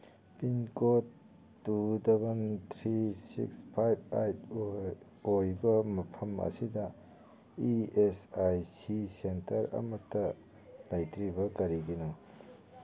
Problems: background conversations at intervals